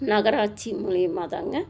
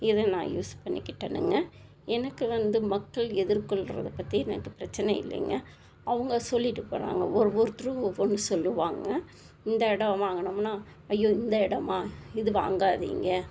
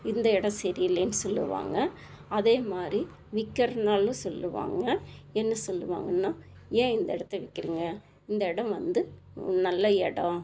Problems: constant background noise